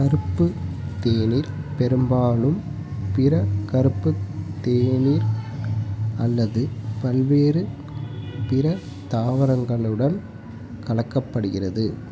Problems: background sounds at intervals